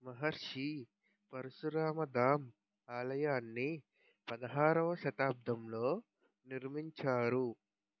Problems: low volume